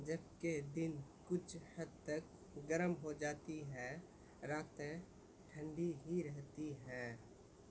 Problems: constant background noise, low volume